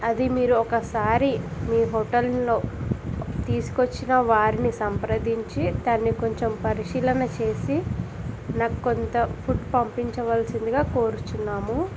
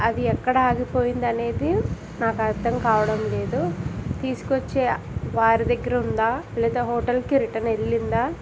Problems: constant background noise